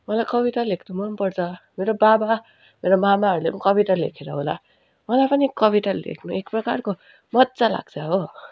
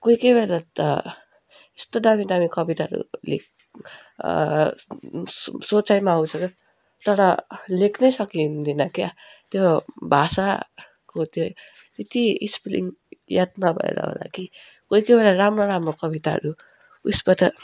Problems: background sounds at intervals